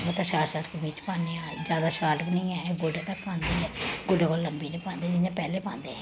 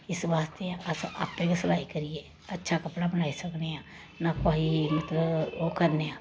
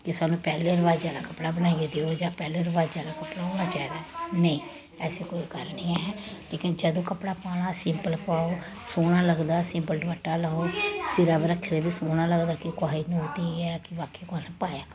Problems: constant background noise